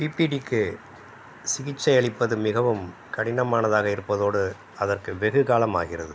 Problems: none marked